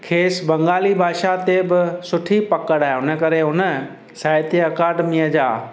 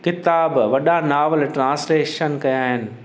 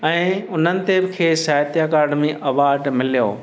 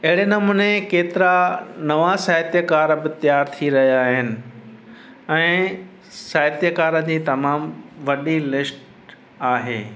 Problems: constant background noise, echo